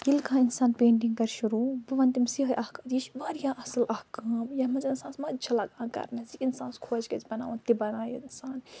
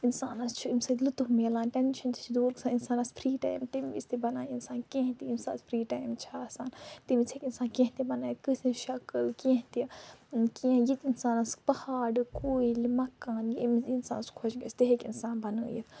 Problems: background sounds at intervals, low volume